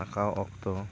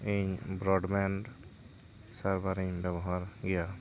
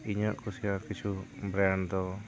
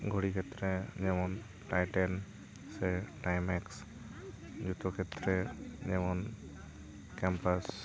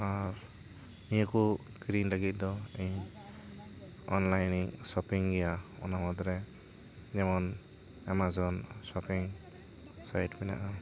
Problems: constant background noise, continuous background conversations